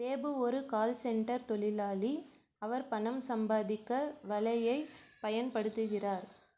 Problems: low volume